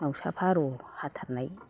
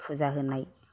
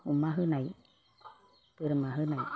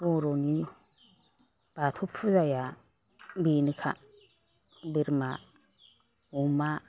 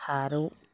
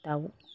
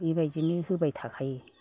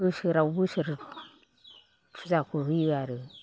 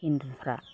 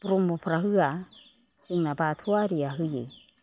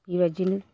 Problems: none marked